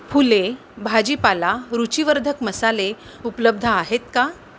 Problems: constant background noise